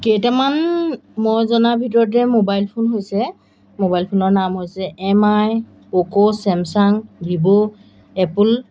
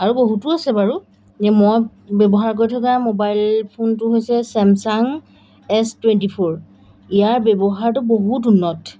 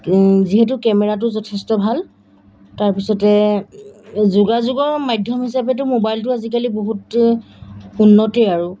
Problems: none marked